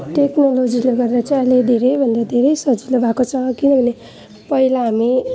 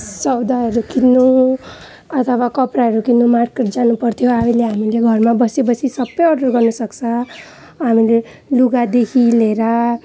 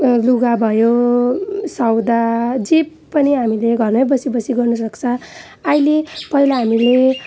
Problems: background sounds at intervals